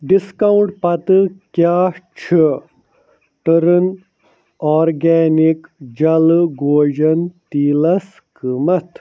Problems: none marked